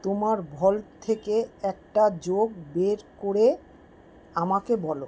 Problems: background sounds at intervals